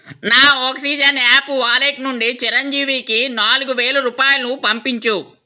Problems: none marked